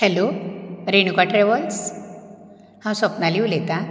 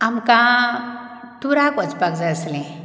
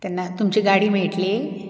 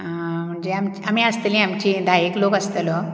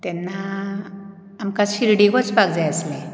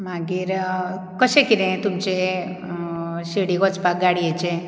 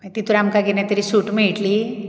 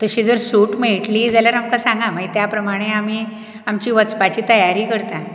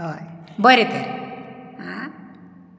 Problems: none marked